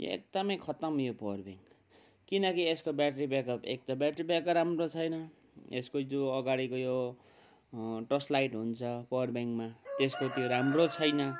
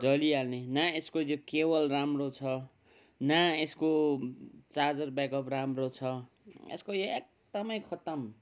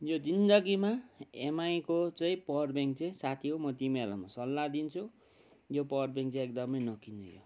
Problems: none marked